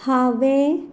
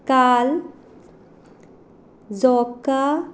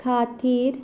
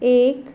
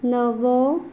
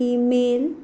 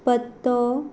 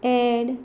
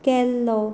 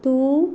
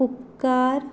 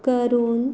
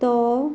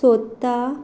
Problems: none marked